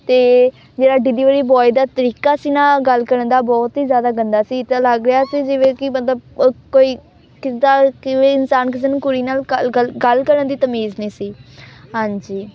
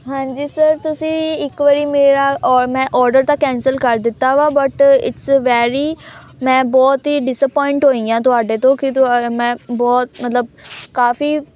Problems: constant background noise, background conversations at intervals